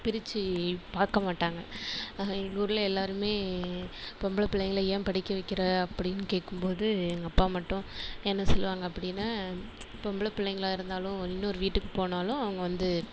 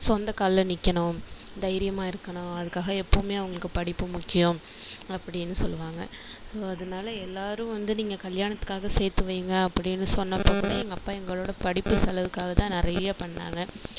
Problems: background sounds at intervals